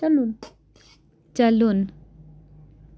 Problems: background sounds at intervals